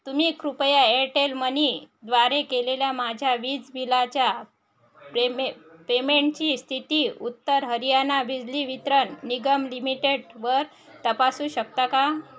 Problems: continuous background conversations